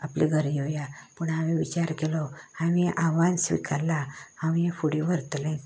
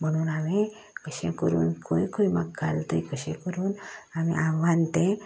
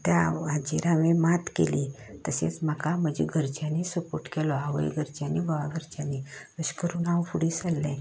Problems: constant background noise